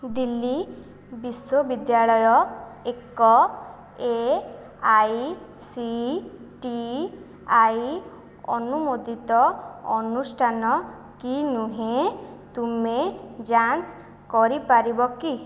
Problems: none marked